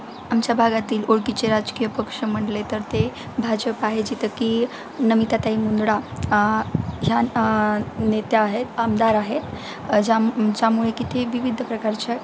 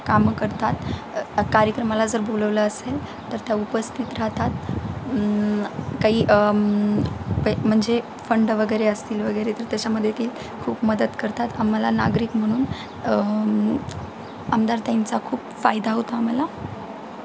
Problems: constant background noise